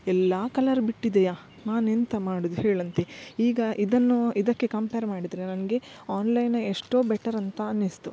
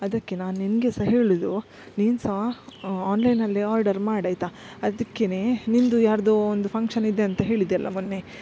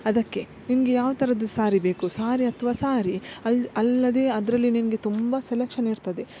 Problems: background sounds at intervals